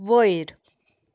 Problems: none marked